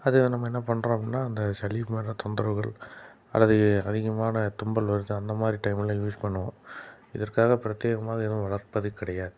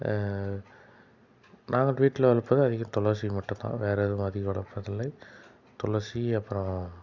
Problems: background sounds at intervals